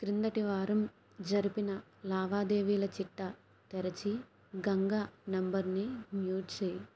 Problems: low volume